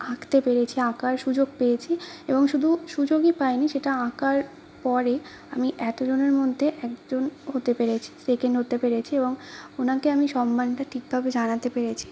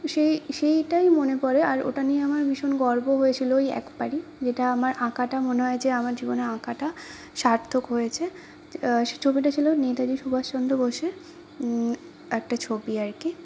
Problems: constant background noise